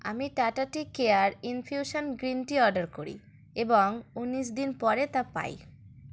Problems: background sounds at intervals